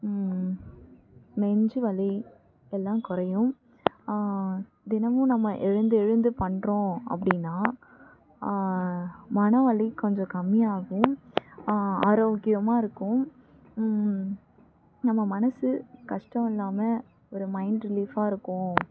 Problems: background sounds at intervals, low volume